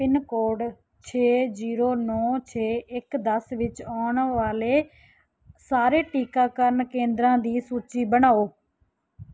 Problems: background sounds at intervals